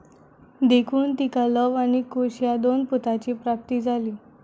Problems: none marked